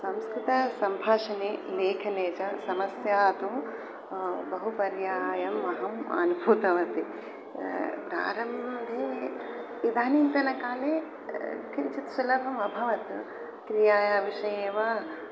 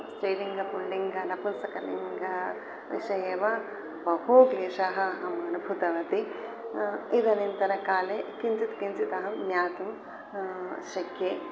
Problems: constant background noise